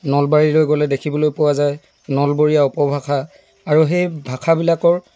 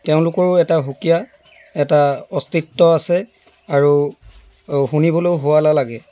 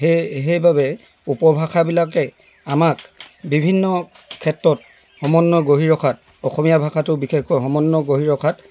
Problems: none marked